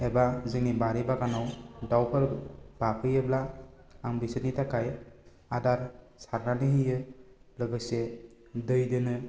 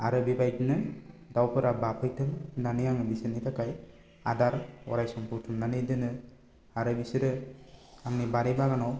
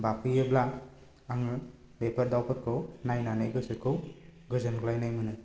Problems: low volume